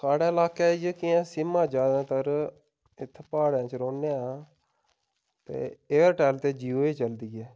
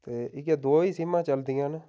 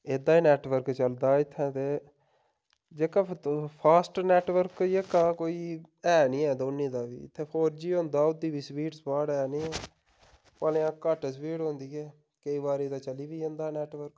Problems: none marked